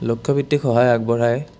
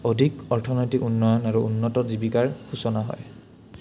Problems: none marked